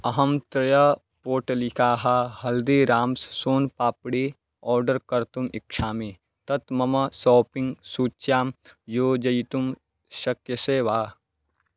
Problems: none marked